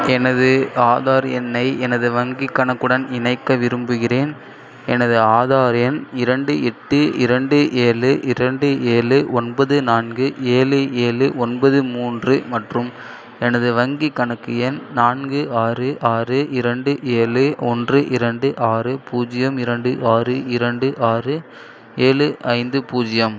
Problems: none marked